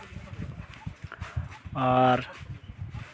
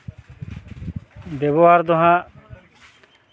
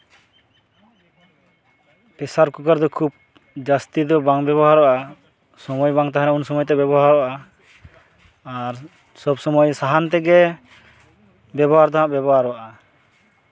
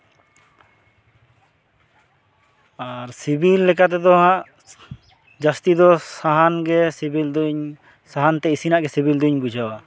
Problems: background sounds at intervals, background conversations at intervals